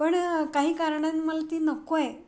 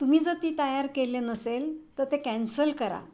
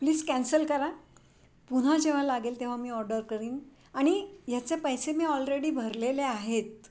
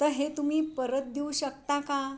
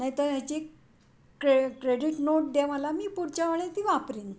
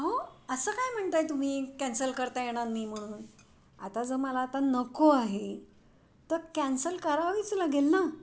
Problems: none marked